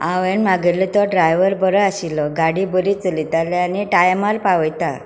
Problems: background sounds at intervals